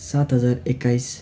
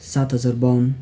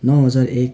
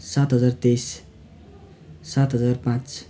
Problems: constant background noise